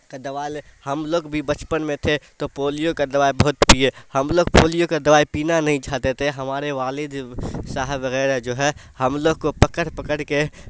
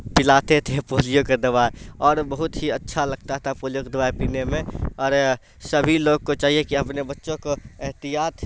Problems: constant background noise